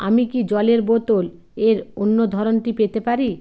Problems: constant background noise